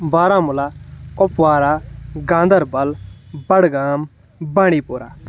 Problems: none marked